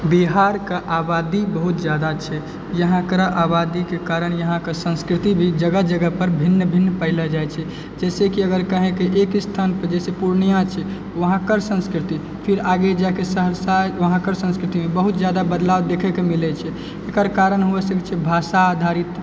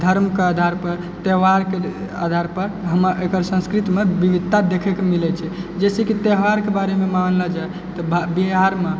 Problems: constant background noise